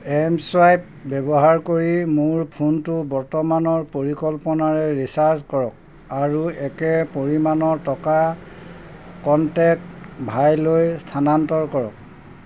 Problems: constant background noise